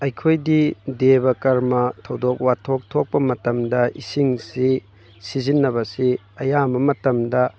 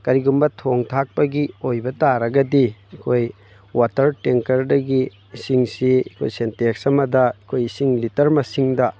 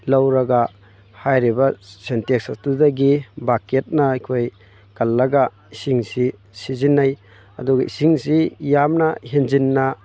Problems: background sounds at intervals